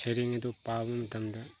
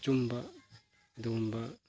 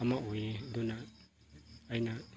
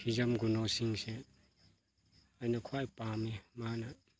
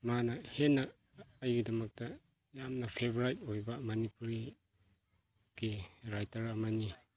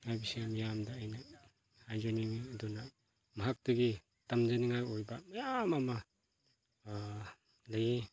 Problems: background sounds at intervals